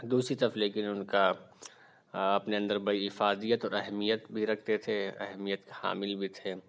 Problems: constant background noise